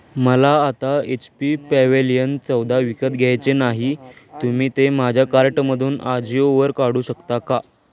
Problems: background sounds at intervals, background conversations at intervals